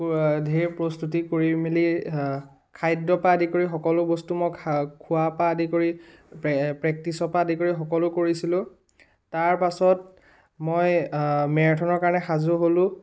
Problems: background sounds at intervals